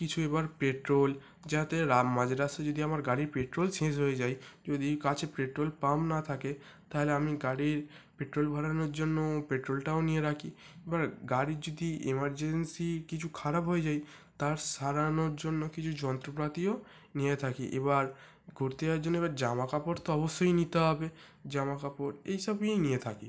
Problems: none marked